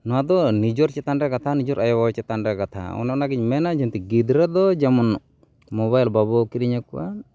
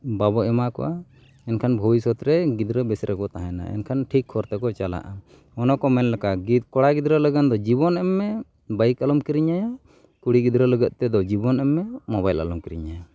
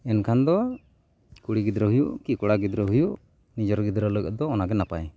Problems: none marked